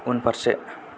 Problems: none marked